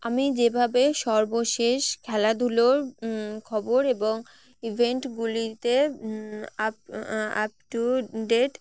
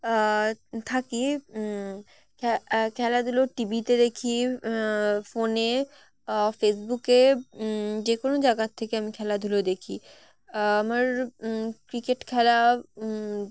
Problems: constant background noise